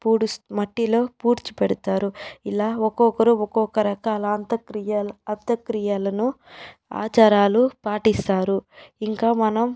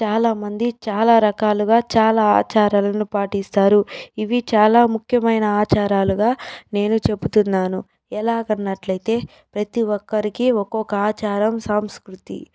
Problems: background sounds at intervals